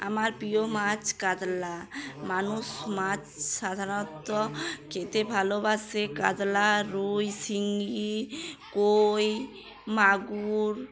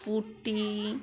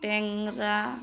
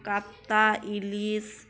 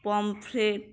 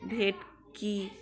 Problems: continuous background conversations